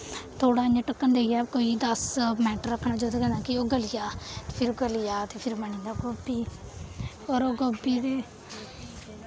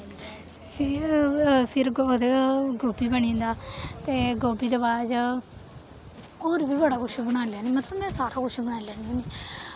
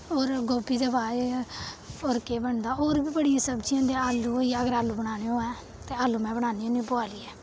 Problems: constant background noise